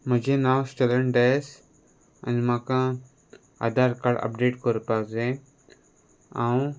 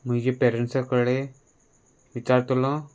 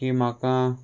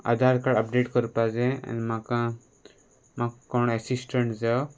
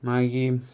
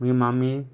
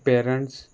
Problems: none marked